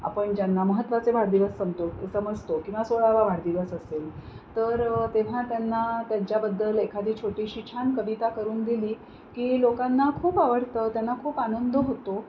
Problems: constant background noise